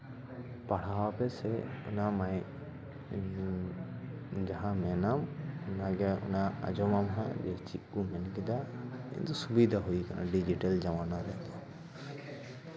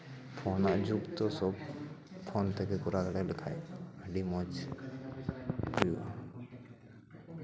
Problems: continuous background conversations, low volume